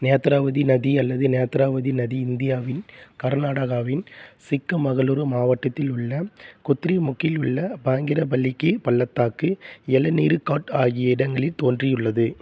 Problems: none marked